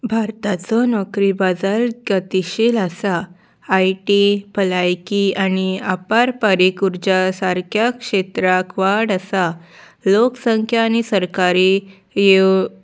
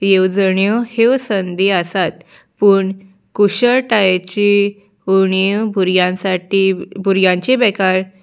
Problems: background sounds at intervals